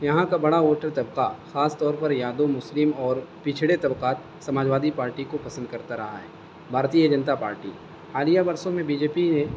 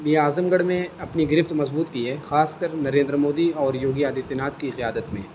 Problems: constant background noise